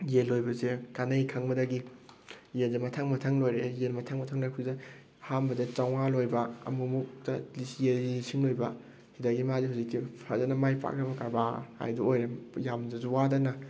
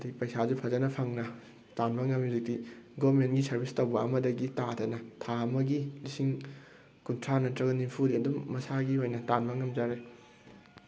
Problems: background sounds at intervals